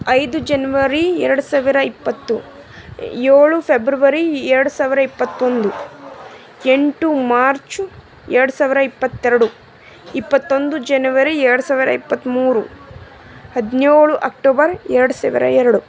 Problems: constant background noise